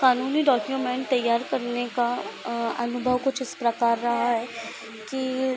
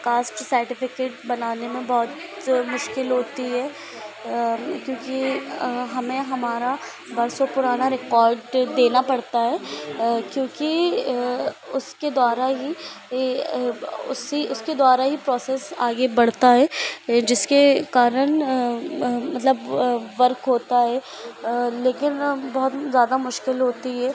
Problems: constant background noise